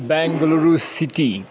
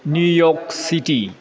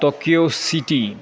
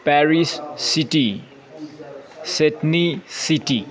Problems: none marked